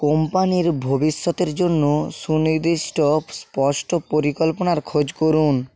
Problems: constant background noise